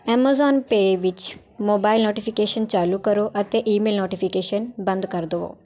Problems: constant background noise